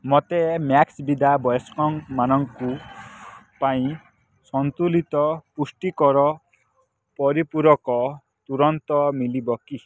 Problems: background sounds at intervals